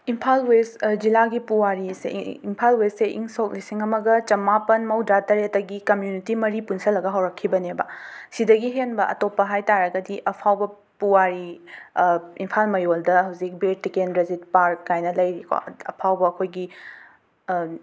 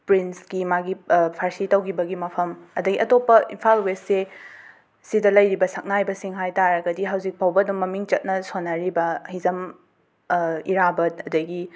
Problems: background sounds at intervals